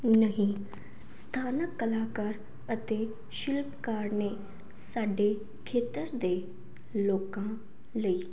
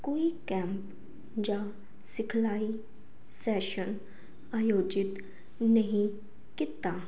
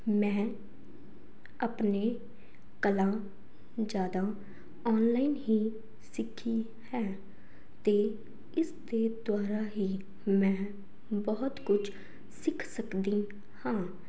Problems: background sounds at intervals